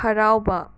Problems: none marked